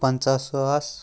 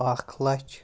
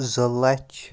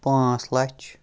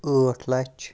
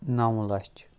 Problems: none marked